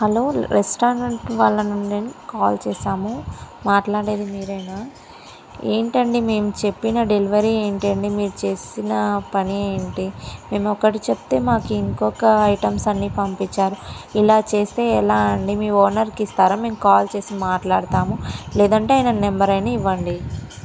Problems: background sounds at intervals